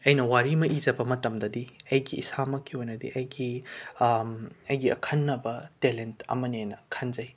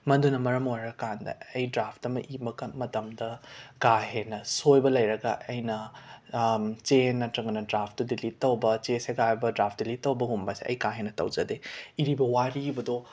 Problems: background sounds at intervals